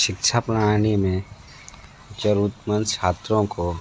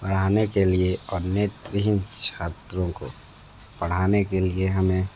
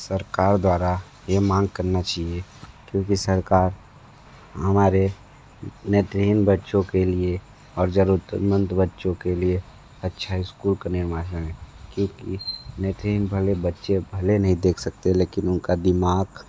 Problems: low volume